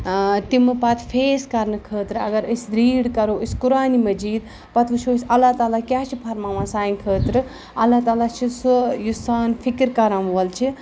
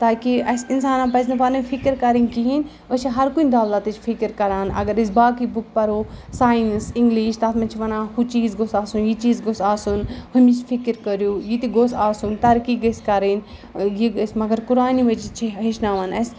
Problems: none marked